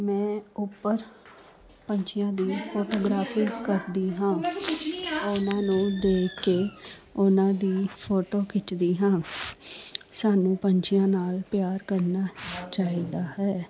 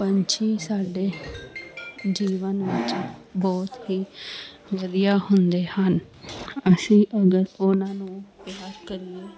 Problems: constant background noise